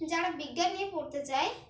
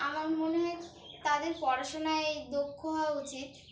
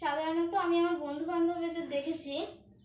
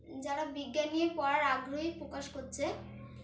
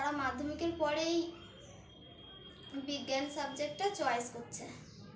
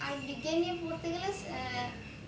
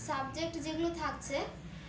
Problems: none marked